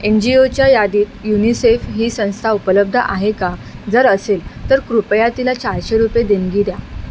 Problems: constant background noise